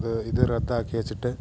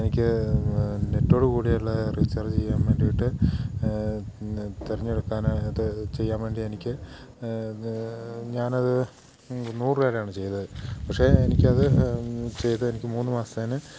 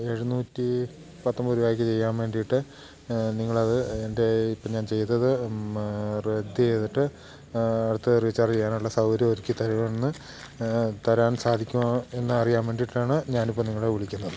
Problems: background sounds at intervals